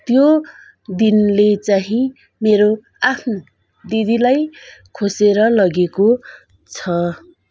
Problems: continuous background conversations